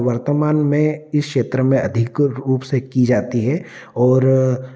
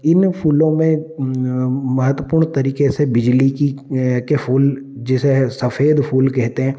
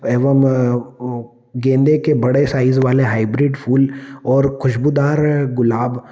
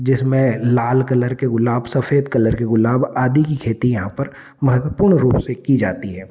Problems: none marked